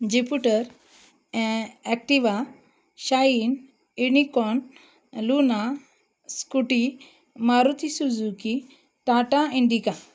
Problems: none marked